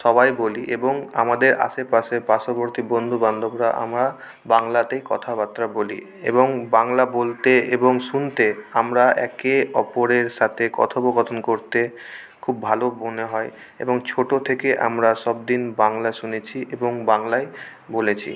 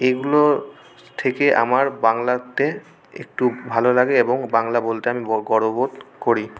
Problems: constant background noise